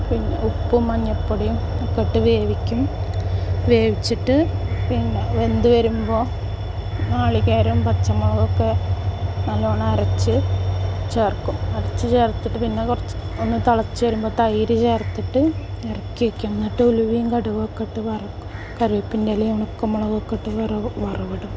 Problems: background sounds at intervals